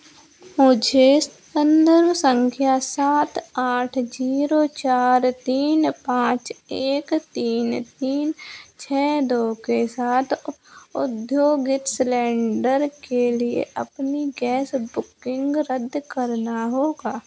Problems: none marked